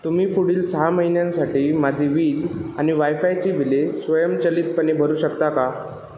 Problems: echo